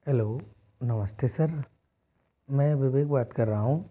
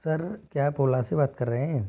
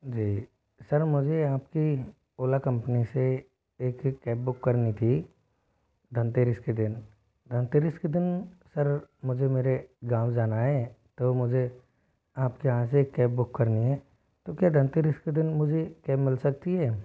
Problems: background sounds at intervals